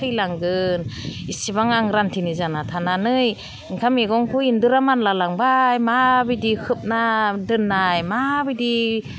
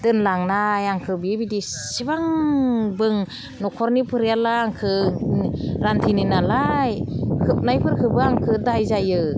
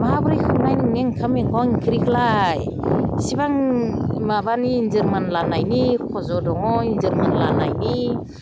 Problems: none marked